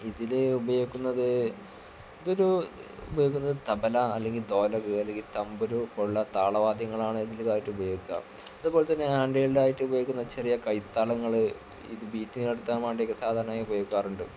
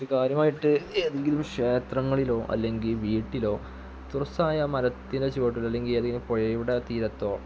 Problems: background sounds at intervals, low volume